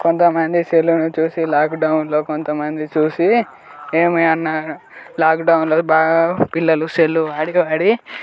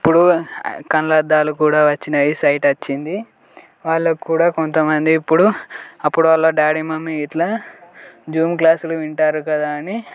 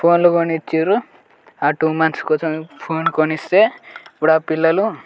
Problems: constant background noise, background conversations at intervals